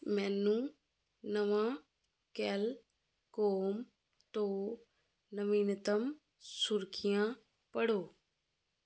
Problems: constant background noise